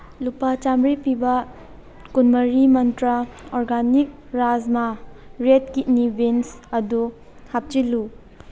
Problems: background sounds at intervals